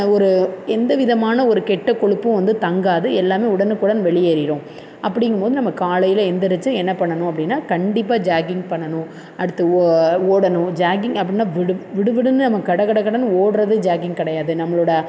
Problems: constant background noise